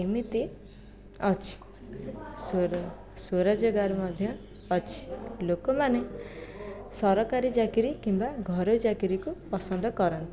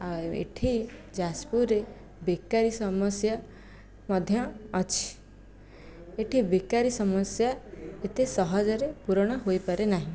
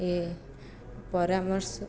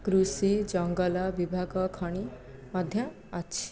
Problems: low volume